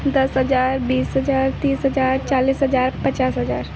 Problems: constant background noise